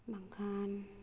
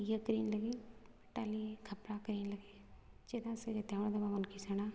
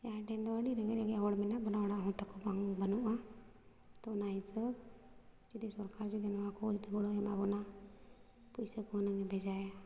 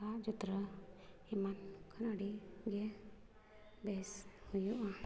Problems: none marked